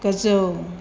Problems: constant background noise